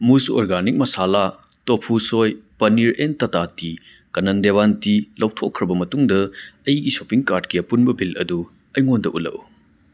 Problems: background sounds at intervals